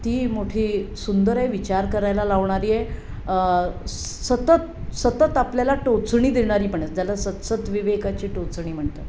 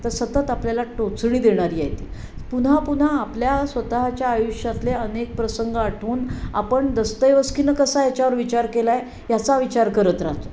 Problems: none marked